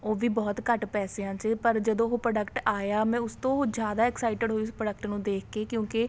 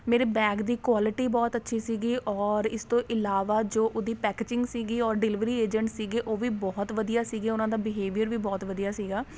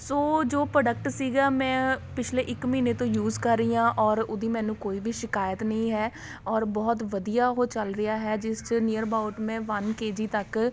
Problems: none marked